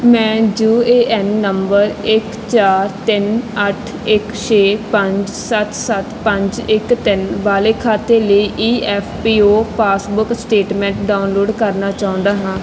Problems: background sounds at intervals